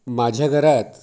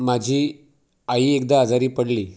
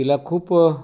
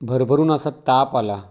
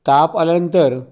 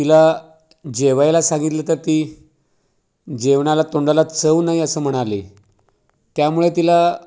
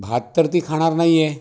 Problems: none marked